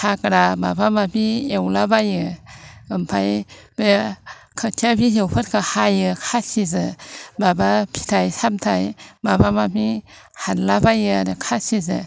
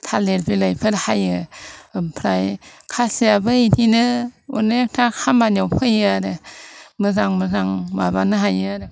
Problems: none marked